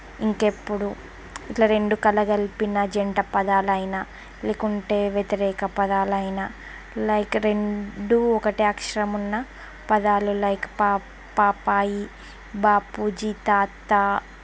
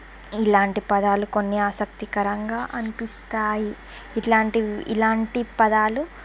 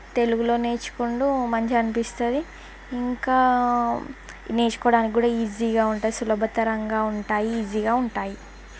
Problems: constant background noise